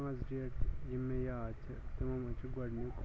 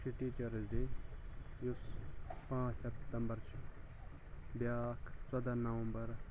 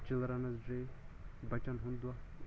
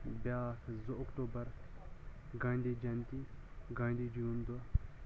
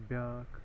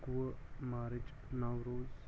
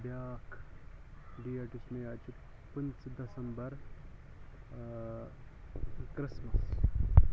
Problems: constant background noise, low volume